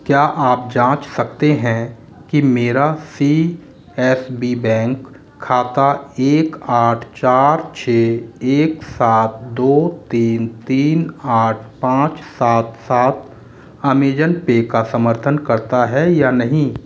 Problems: constant background noise